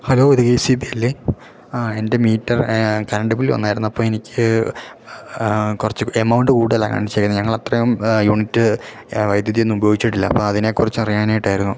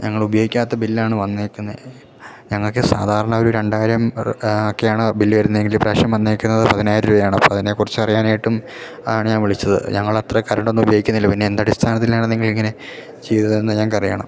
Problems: none marked